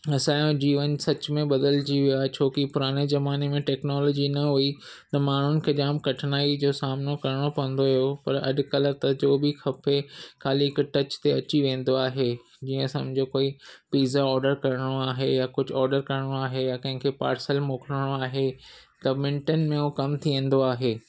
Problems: none marked